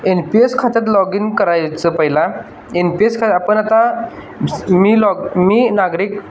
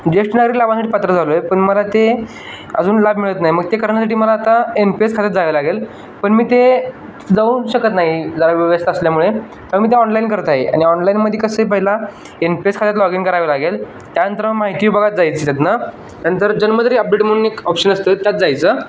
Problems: constant background noise